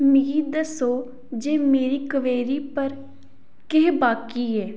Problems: none marked